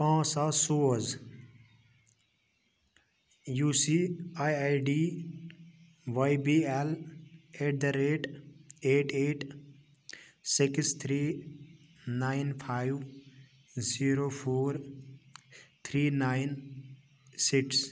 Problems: none marked